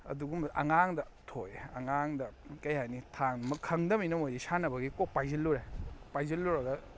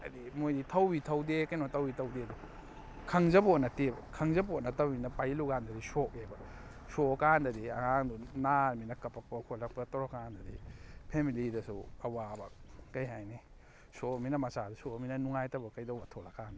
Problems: background sounds at intervals